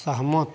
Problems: constant background noise